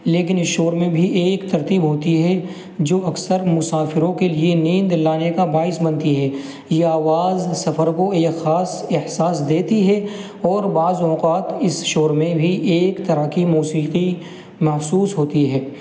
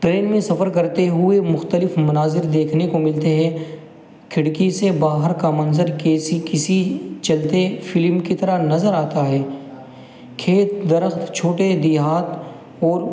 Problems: constant background noise